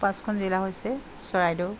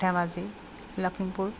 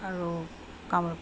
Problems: none marked